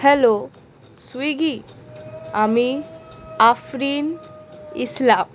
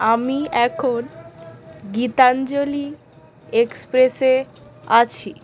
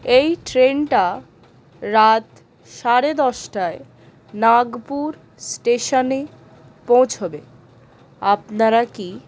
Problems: none marked